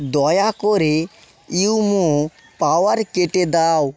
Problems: background sounds at intervals